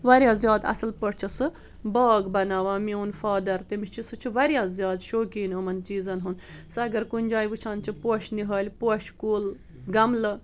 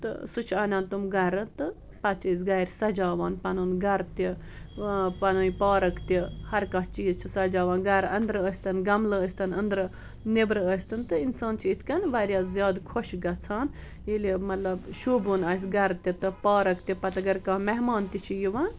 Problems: background conversations at intervals